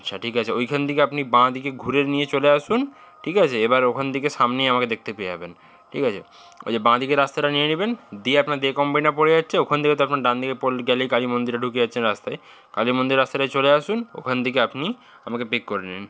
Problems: constant background noise